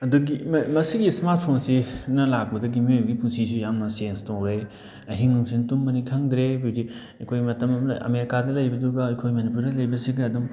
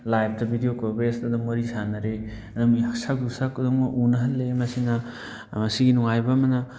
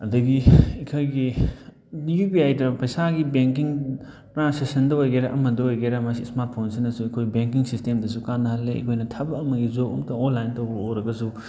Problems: background conversations at intervals